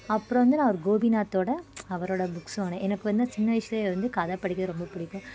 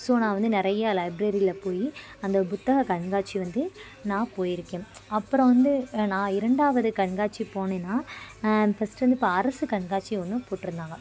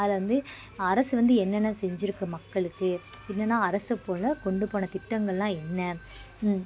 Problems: constant background noise, continuous background conversations